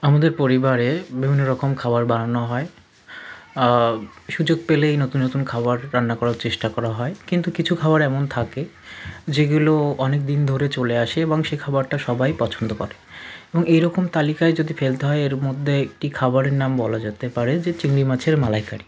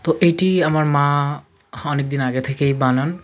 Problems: constant background noise, continuous background conversations